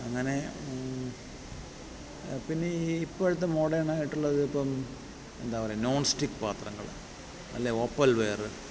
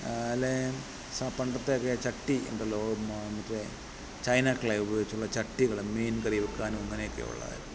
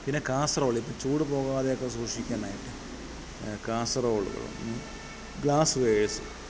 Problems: background sounds at intervals